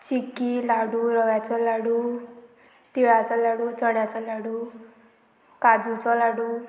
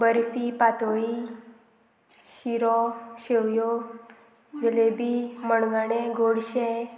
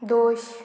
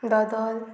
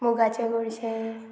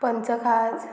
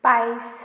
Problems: constant background noise